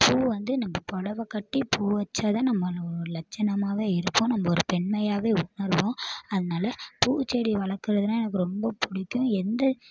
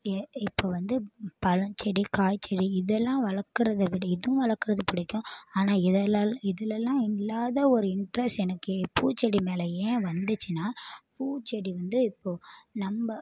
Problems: background sounds at intervals